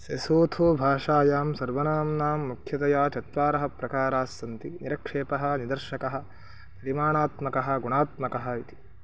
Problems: none marked